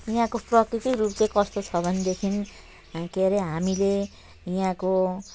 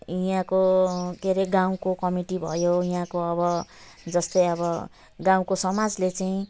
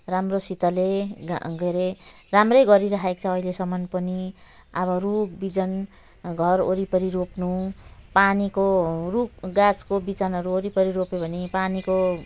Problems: none marked